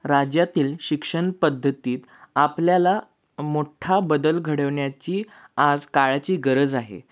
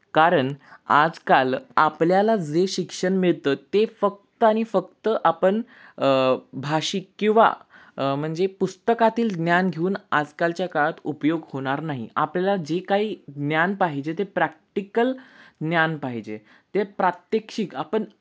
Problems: none marked